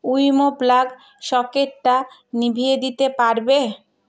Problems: none marked